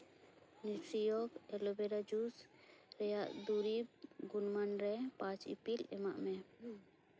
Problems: background sounds at intervals, background conversations at intervals